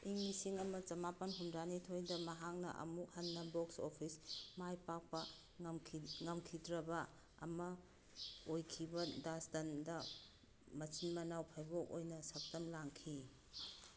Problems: none marked